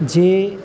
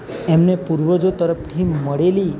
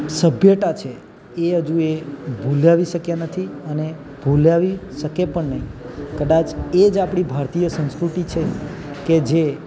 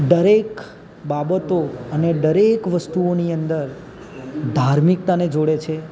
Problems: none marked